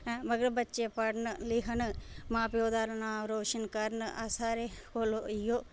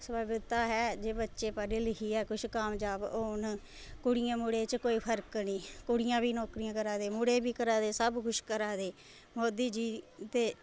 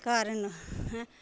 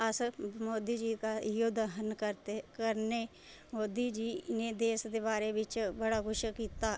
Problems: none marked